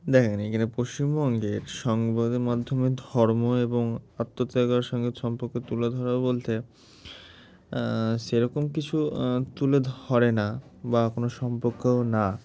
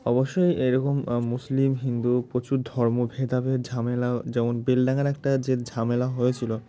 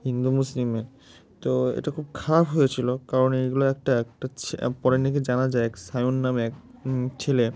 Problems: background sounds at intervals